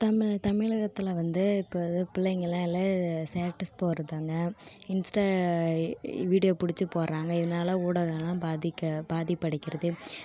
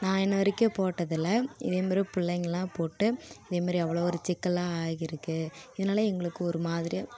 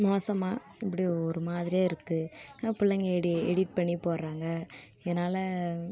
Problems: continuous background conversations